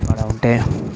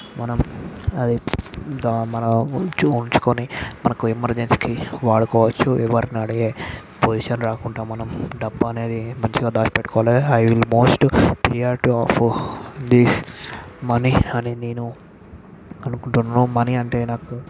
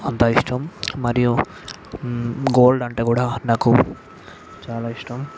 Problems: none marked